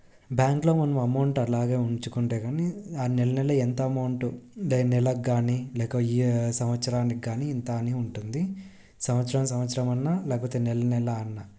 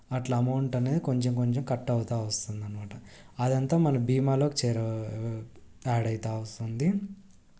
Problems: none marked